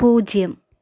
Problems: none marked